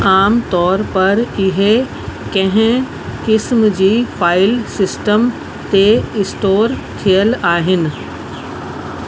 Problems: constant background noise